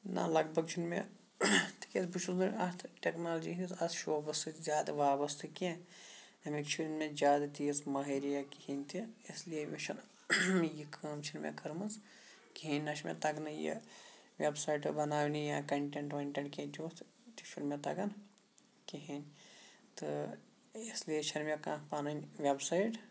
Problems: background sounds at intervals, low volume